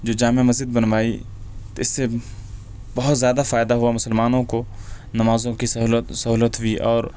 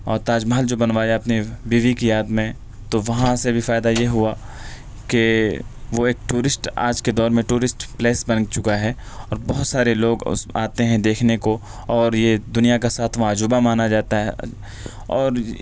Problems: none marked